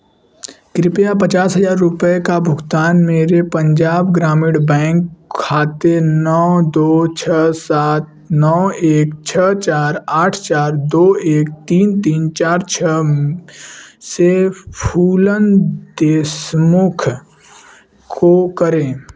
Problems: none marked